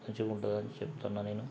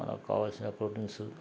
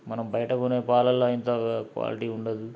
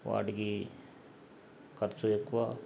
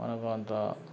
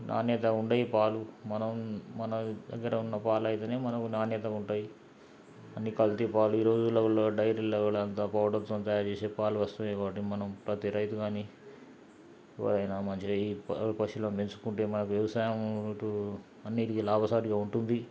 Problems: background sounds at intervals, low volume